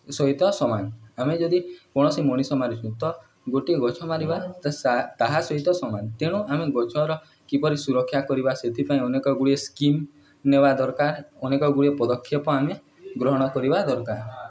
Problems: background conversations at intervals